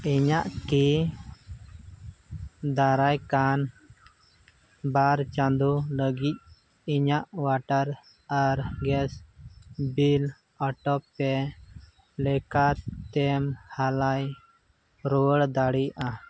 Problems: constant background noise